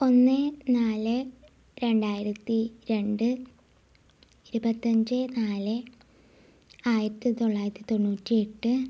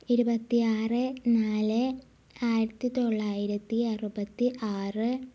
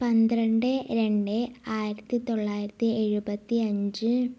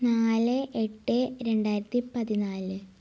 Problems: low volume